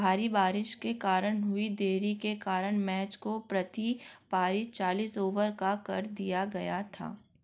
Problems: none marked